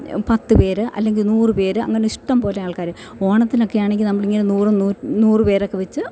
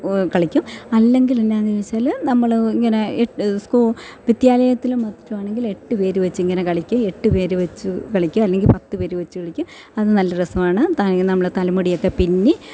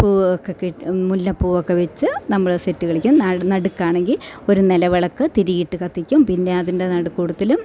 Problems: none marked